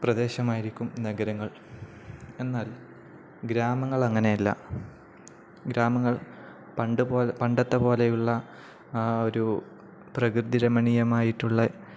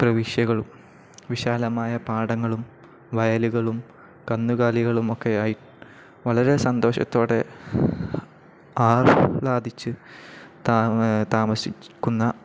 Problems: none marked